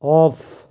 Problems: constant background noise